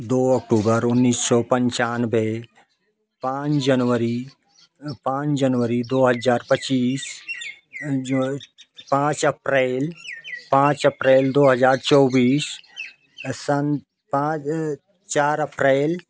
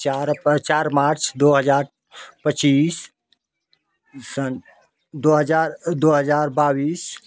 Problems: constant background noise